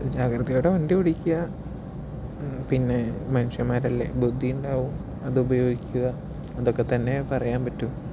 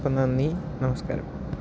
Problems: background sounds at intervals, low volume